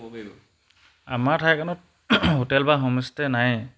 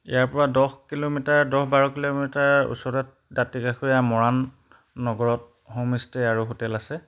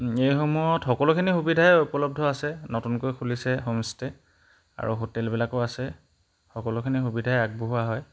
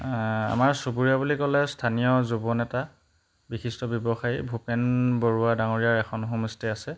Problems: background sounds at intervals